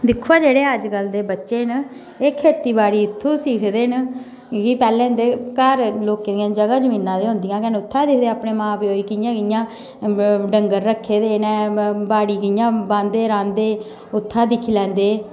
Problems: background sounds at intervals, echo